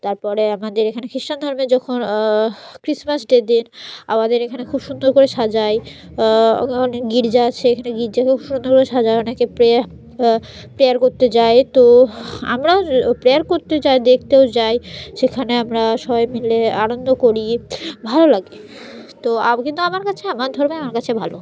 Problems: background sounds at intervals